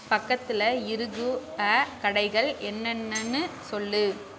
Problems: background sounds at intervals